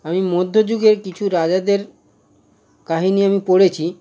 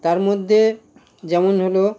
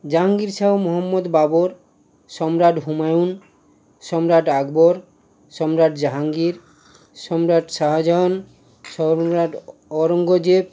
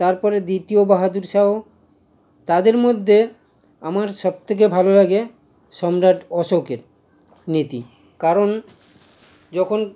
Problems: constant background noise